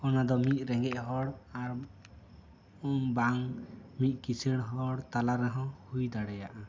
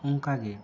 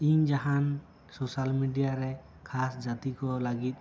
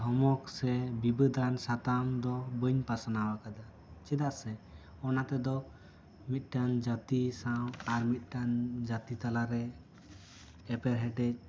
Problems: none marked